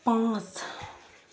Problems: constant background noise